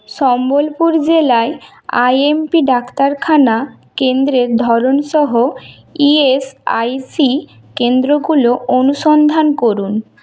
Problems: background sounds at intervals